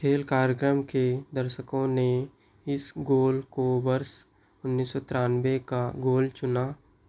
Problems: background sounds at intervals